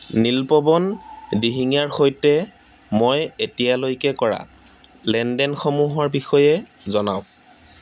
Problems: constant background noise